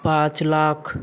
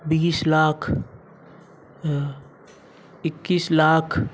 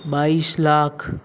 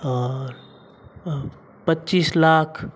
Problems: background sounds at intervals